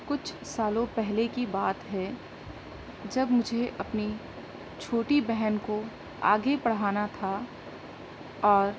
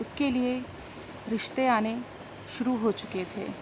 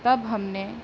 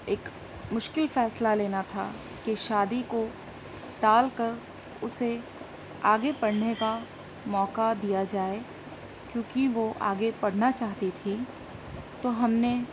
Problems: constant background noise